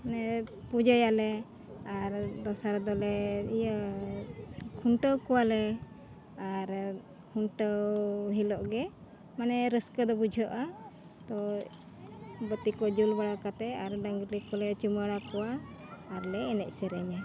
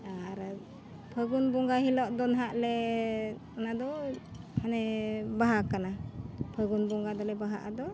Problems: constant background noise, background conversations at intervals